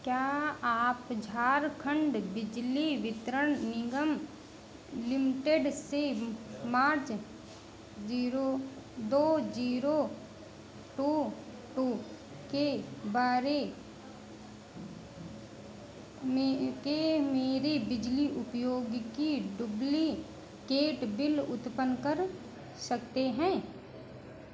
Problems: none marked